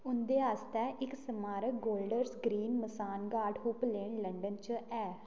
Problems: none marked